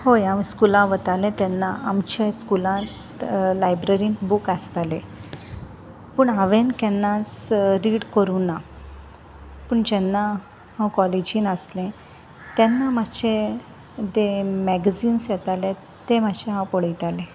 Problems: constant background noise